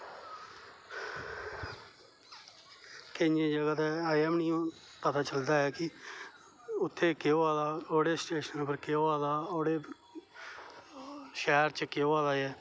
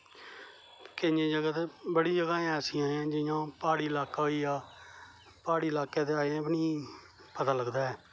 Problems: none marked